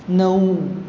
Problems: none marked